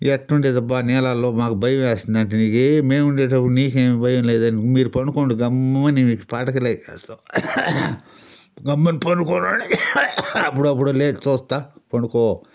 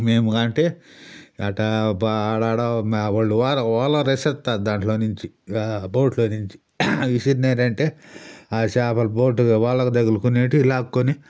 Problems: background sounds at intervals